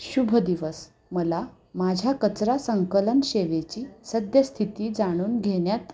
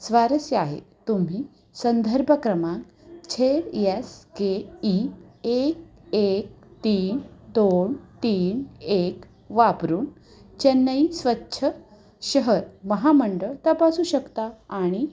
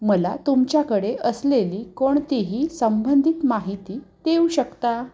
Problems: background sounds at intervals